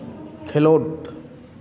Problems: continuous background conversations